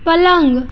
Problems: none marked